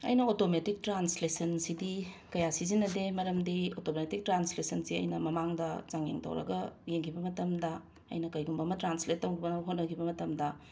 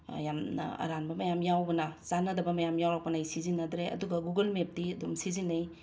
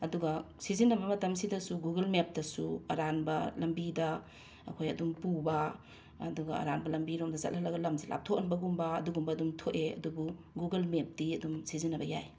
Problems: constant background noise